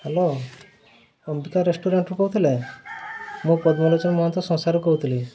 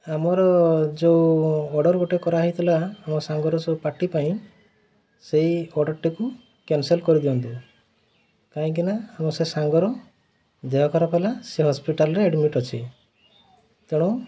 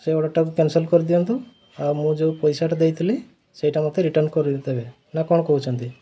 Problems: constant background noise